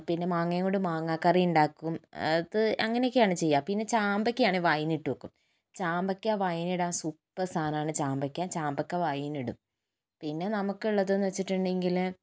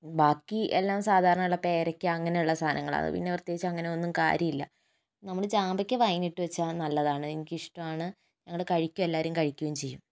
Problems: none marked